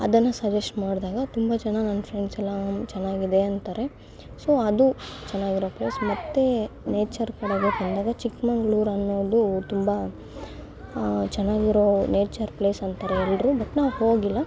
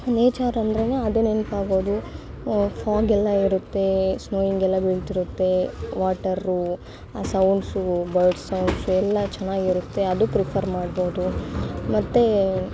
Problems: constant background noise